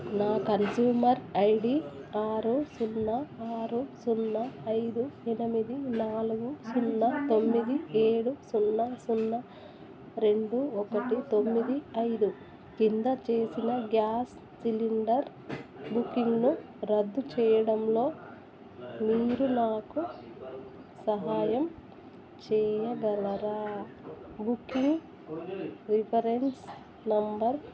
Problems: constant background noise, background conversations at intervals, low volume